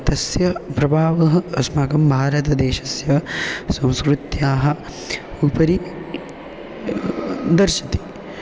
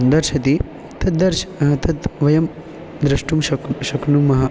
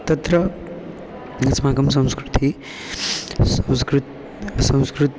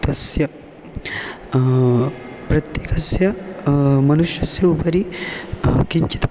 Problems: none marked